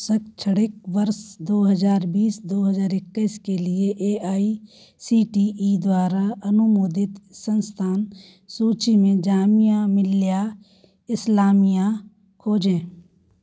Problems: background sounds at intervals